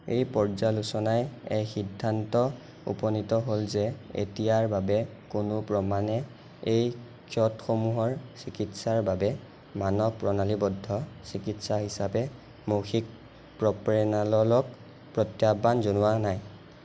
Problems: none marked